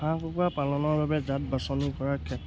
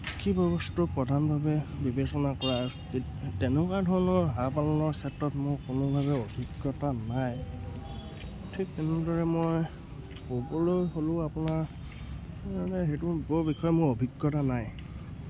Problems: constant background noise